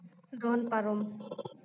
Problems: background sounds at intervals